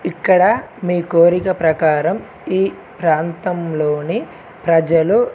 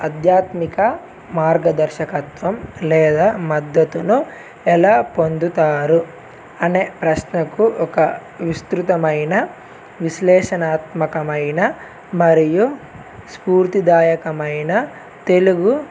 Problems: none marked